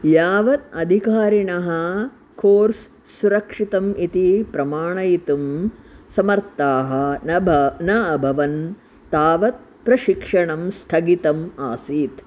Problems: constant background noise